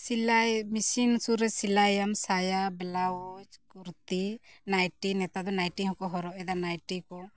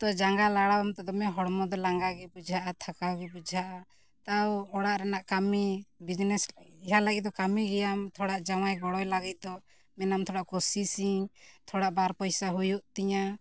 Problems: none marked